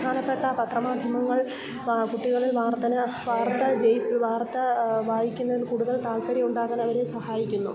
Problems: background sounds at intervals, low volume